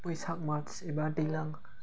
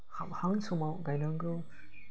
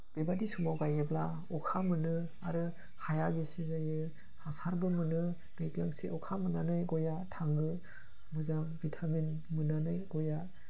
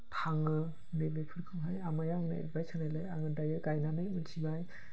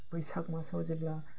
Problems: constant background noise